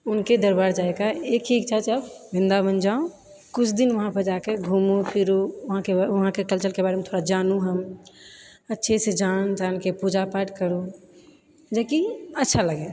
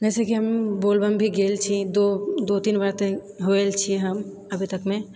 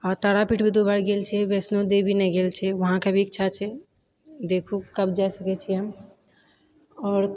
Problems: none marked